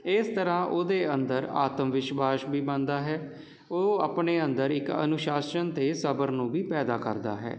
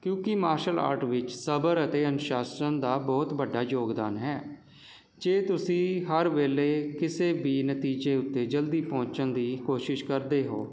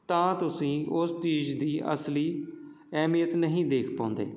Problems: constant background noise